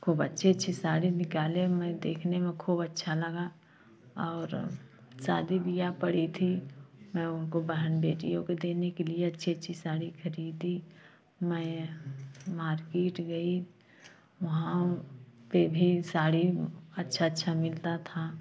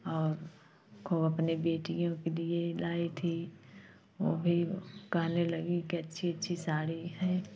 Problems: constant background noise